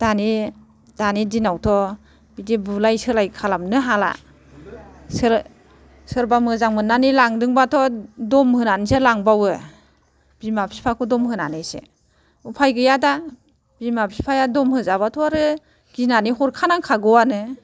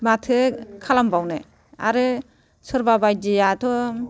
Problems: constant background noise, background conversations at intervals